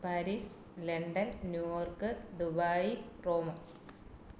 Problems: none marked